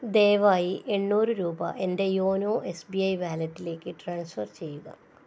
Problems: low volume